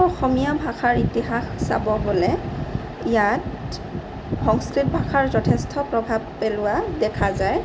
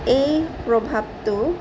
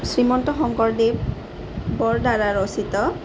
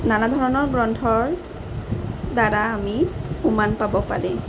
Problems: constant background noise